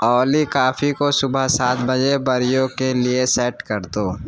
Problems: background sounds at intervals, background conversations at intervals